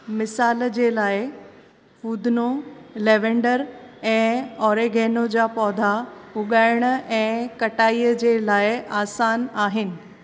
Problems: none marked